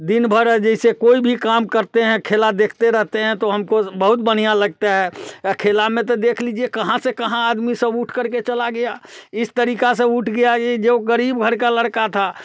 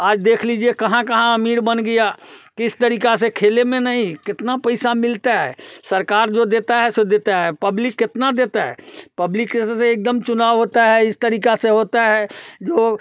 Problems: constant background noise, background conversations at intervals, echo